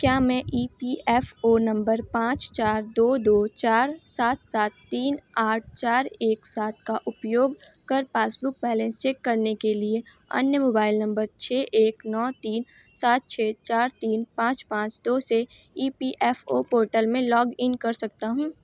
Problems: none marked